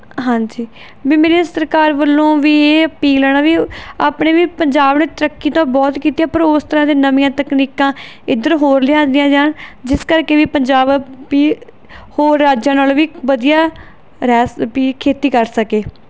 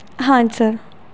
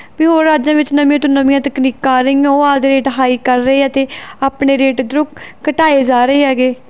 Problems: none marked